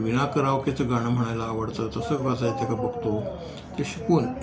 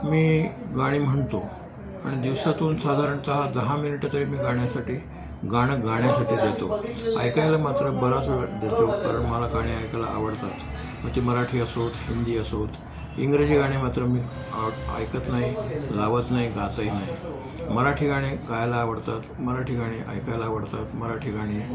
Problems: constant background noise, continuous background conversations